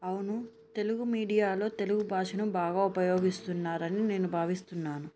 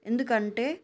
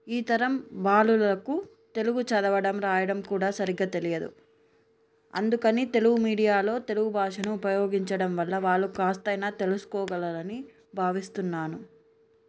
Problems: none marked